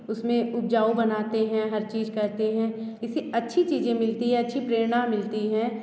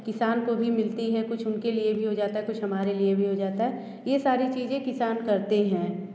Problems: constant background noise